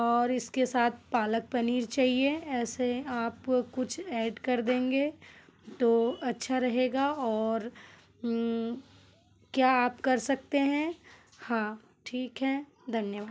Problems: none marked